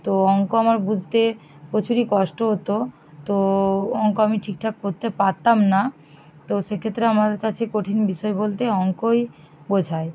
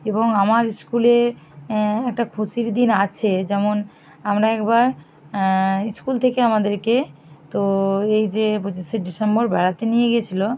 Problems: none marked